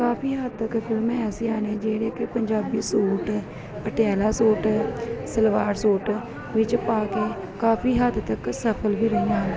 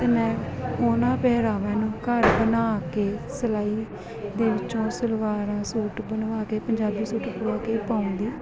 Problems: continuous background conversations